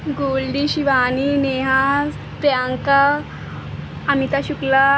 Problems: none marked